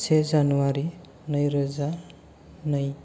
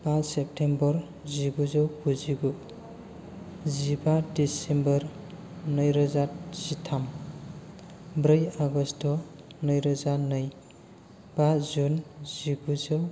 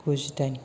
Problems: none marked